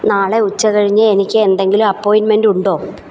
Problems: none marked